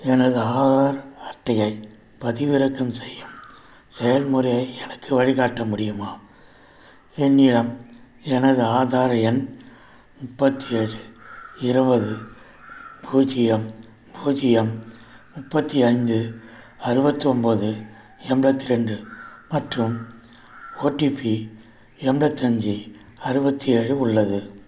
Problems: background sounds at intervals